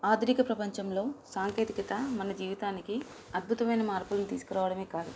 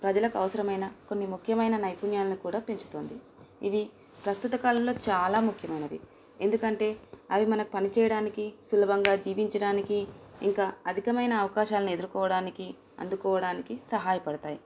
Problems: constant background noise